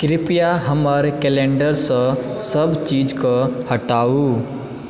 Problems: background conversations at intervals